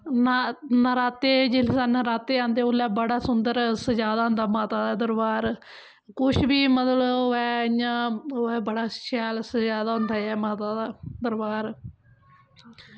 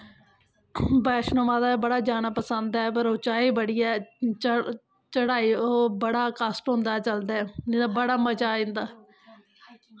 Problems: constant background noise